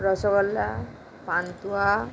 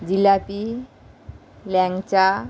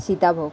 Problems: constant background noise